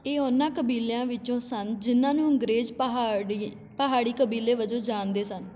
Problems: continuous background conversations